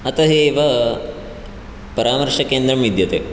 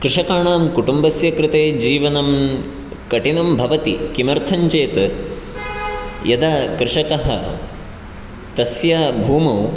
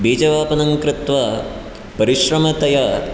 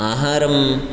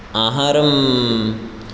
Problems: none marked